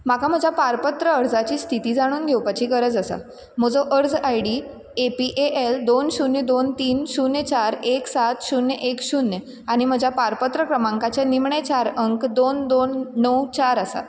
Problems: constant background noise